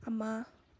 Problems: low volume